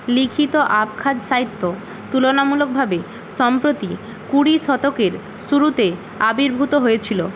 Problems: constant background noise